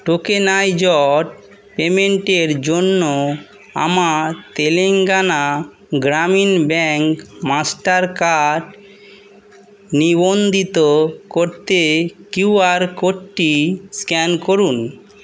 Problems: none marked